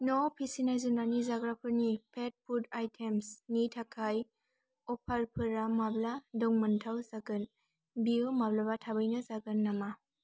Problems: constant background noise